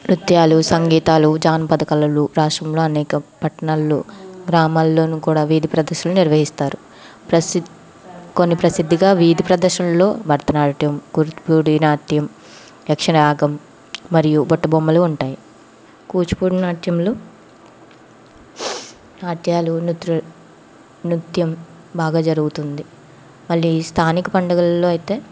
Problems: background sounds at intervals, background conversations at intervals